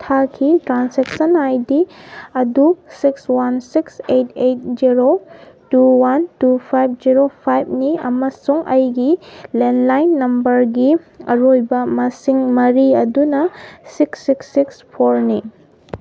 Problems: none marked